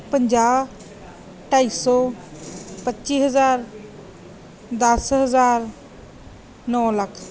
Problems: background sounds at intervals